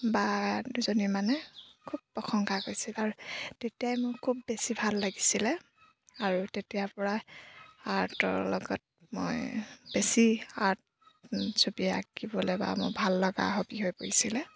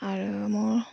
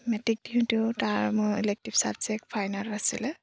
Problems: constant background noise